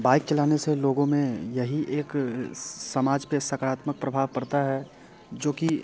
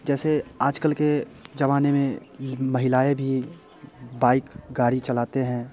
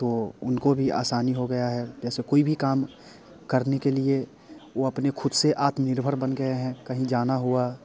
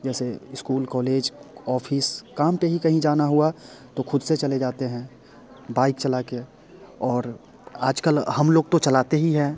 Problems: background sounds at intervals